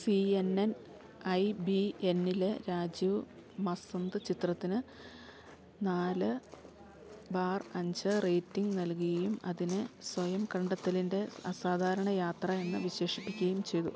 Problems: low volume